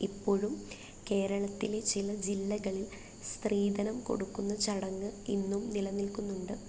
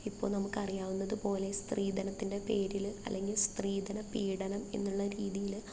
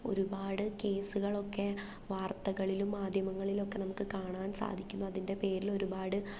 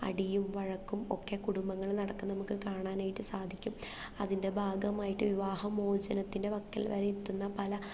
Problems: low volume